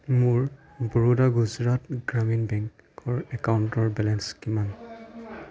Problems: background conversations at intervals